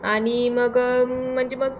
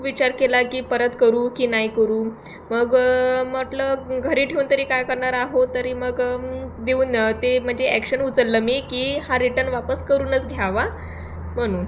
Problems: background sounds at intervals